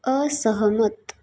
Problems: none marked